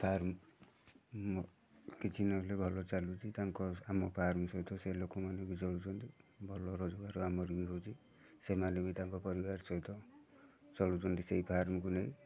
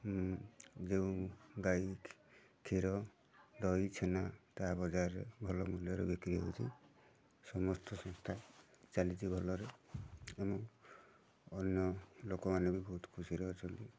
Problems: constant background noise, continuous background conversations